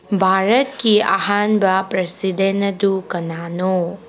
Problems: background sounds at intervals